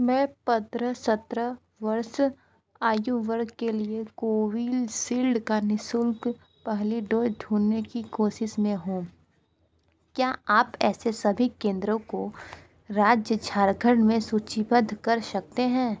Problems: constant background noise, background conversations at intervals